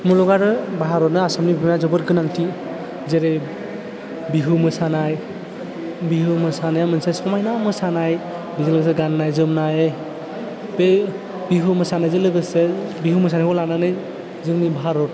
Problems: constant background noise, low volume